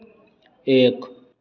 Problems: constant background noise